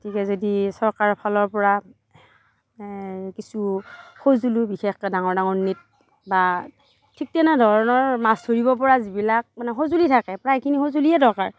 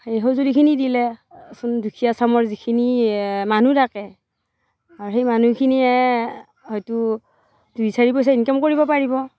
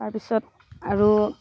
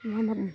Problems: constant background noise, background conversations at intervals